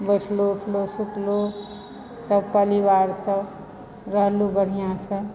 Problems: background sounds at intervals